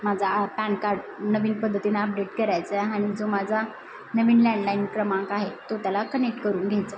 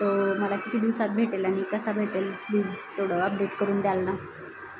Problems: constant background noise, background conversations at intervals